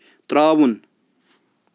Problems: constant background noise